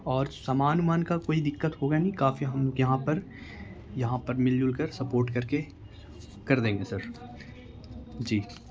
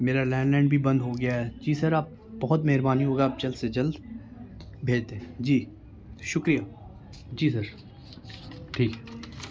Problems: constant background noise